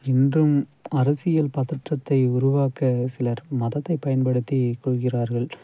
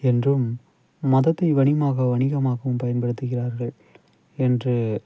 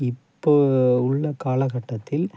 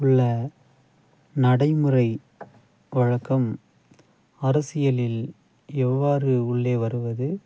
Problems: none marked